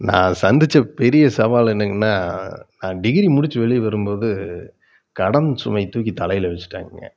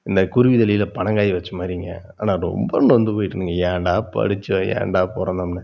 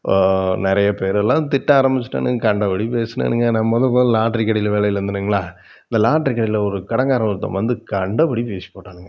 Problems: none marked